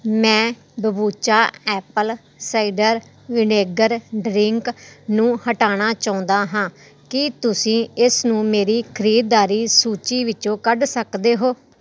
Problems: none marked